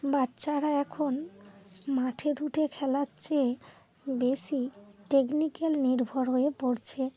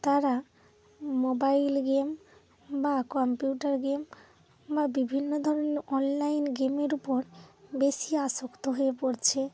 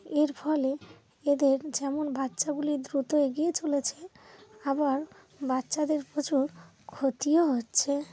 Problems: constant background noise, low volume